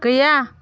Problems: background conversations at intervals